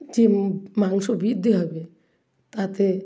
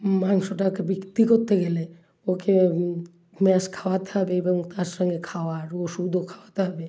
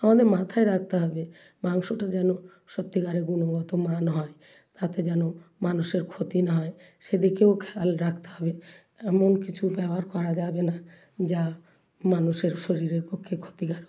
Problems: constant background noise